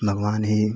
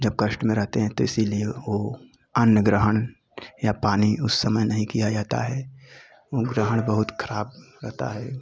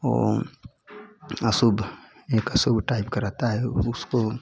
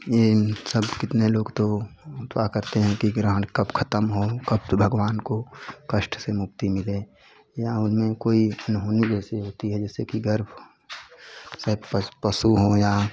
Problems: constant background noise, continuous background conversations